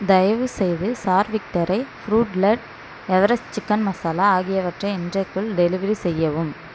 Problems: background sounds at intervals